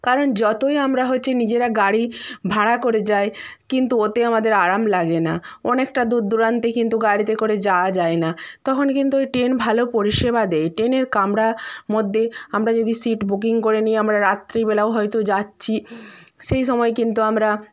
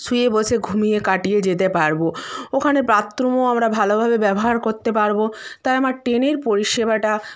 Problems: constant background noise